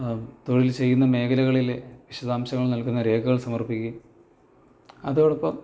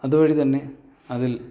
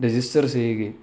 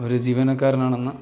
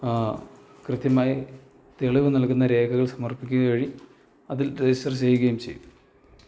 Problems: low volume